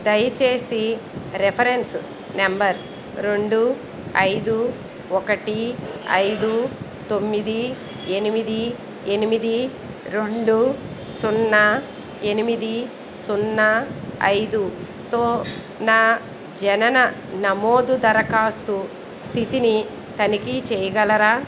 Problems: none marked